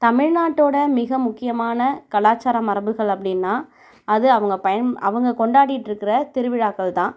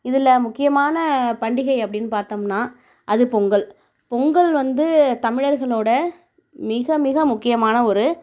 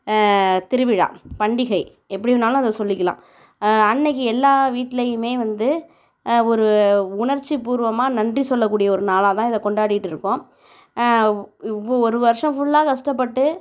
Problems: none marked